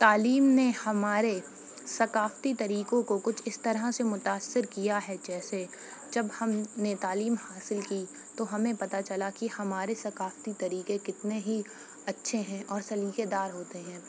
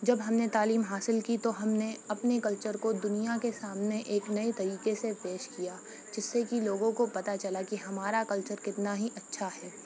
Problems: constant background noise, low volume